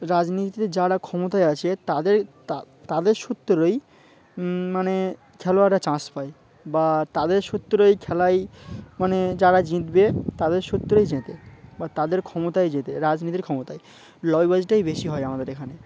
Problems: constant background noise, background conversations at intervals